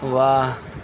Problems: constant background noise